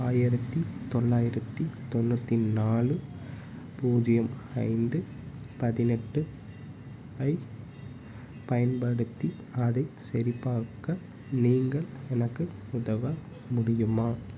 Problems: constant background noise